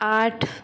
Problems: background sounds at intervals, background conversations at intervals